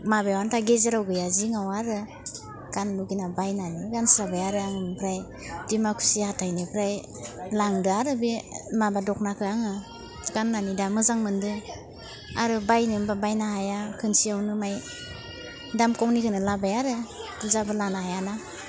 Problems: constant background noise